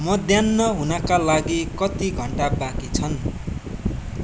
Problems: background sounds at intervals